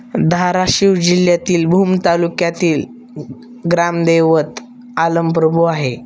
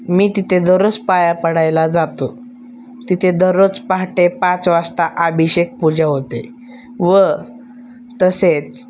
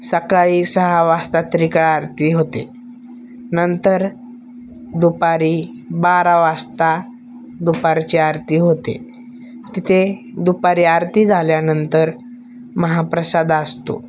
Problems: background sounds at intervals, background conversations at intervals